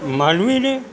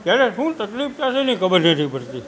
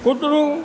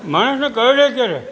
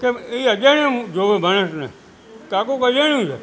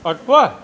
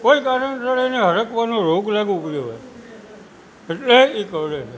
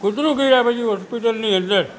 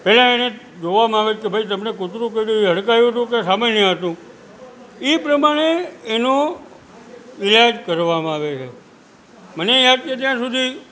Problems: constant background noise